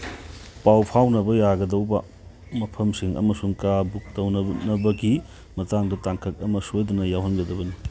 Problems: background sounds at intervals